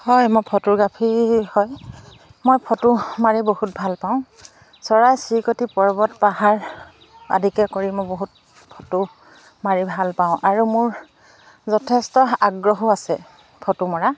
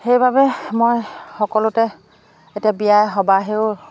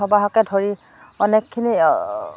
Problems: constant background noise